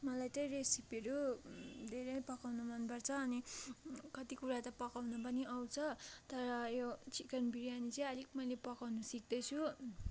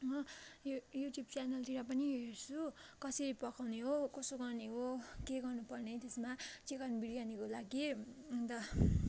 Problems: constant background noise, continuous background conversations